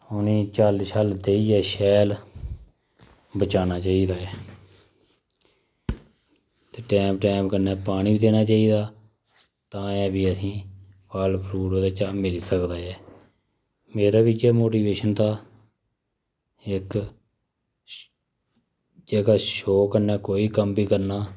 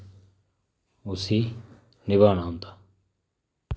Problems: none marked